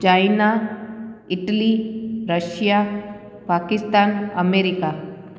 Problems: constant background noise, echo